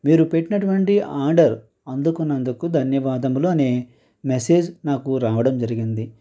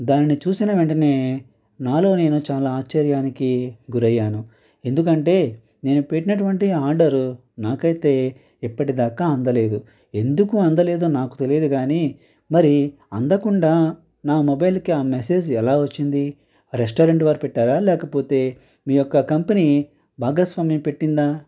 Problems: constant background noise